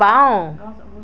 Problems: none marked